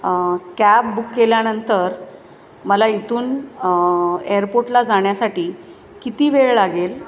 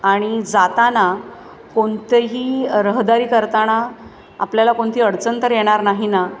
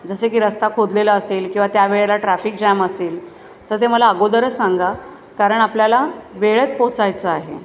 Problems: background sounds at intervals, background conversations at intervals, echo